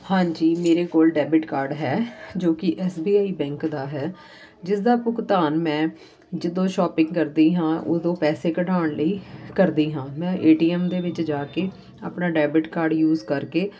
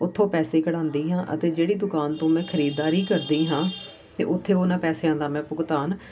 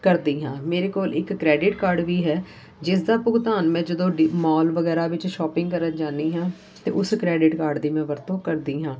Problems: background sounds at intervals